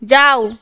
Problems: constant background noise